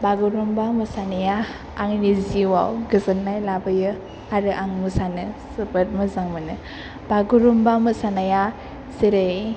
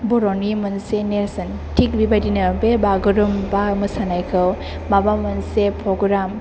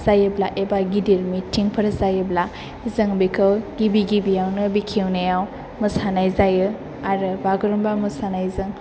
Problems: none marked